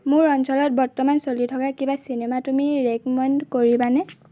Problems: none marked